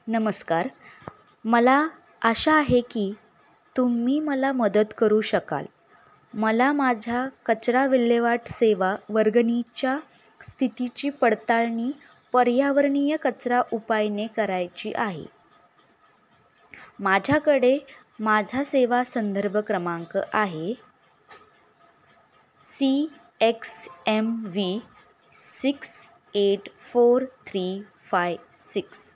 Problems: background sounds at intervals